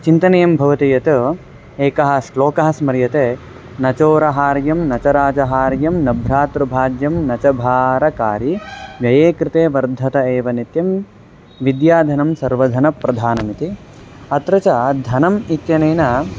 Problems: constant background noise